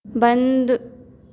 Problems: constant background noise, echo